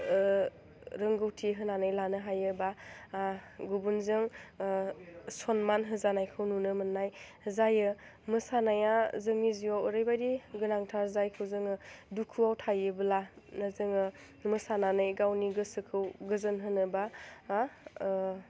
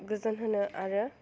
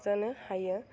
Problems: low volume